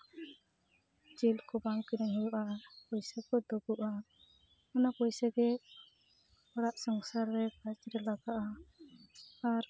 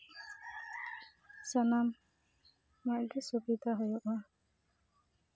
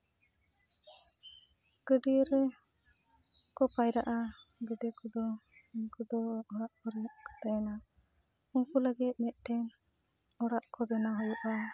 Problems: background sounds at intervals, continuous background conversations